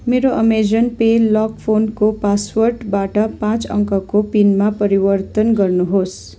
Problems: none marked